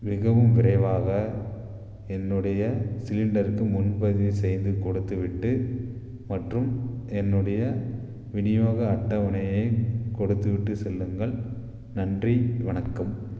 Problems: none marked